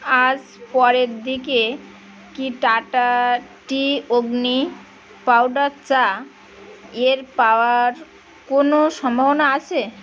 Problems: constant background noise